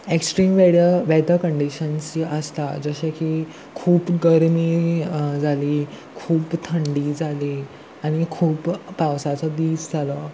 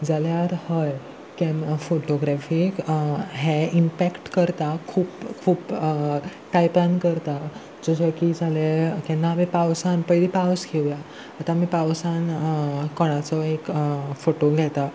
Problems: none marked